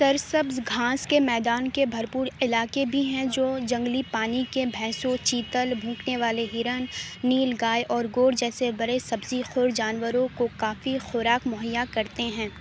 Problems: constant background noise, low volume